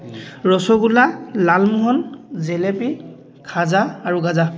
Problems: constant background noise, background conversations at intervals